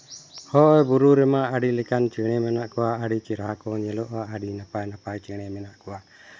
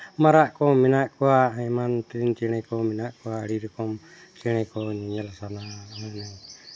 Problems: background sounds at intervals